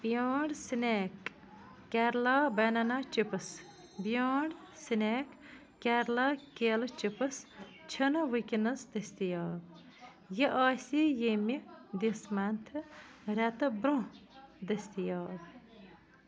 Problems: constant background noise